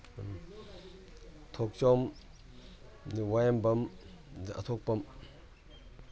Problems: background sounds at intervals